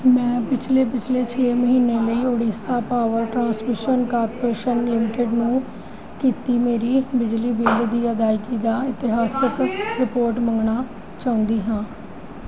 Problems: background conversations at intervals